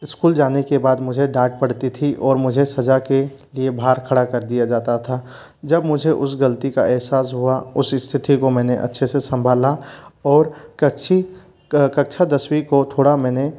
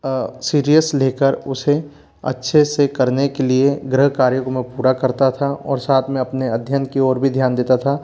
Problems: constant background noise